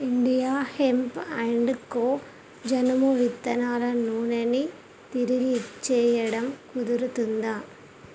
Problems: constant background noise